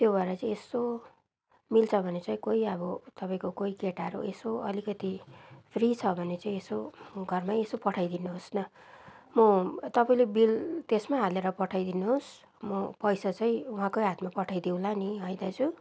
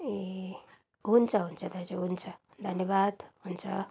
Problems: background sounds at intervals